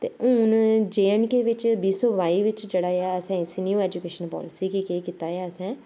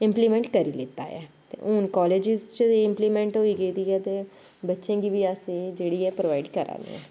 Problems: constant background noise